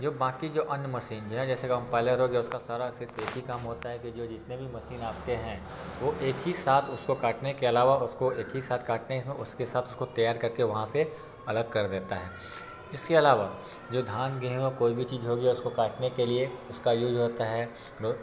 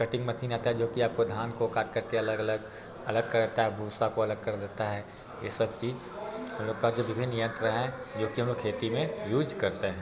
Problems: background sounds at intervals, background conversations at intervals